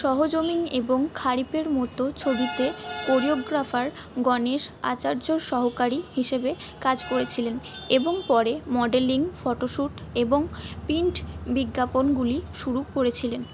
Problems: background sounds at intervals